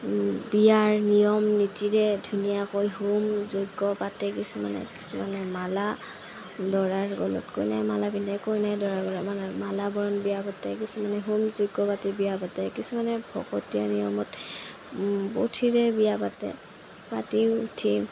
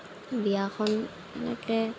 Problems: constant background noise, low volume